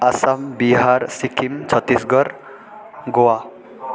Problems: continuous background conversations